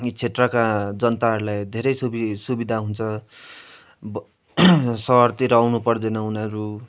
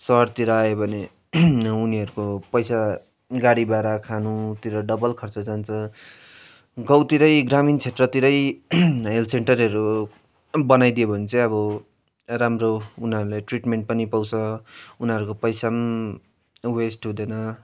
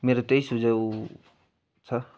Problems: constant background noise